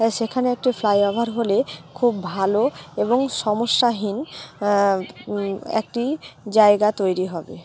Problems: constant background noise, continuous background conversations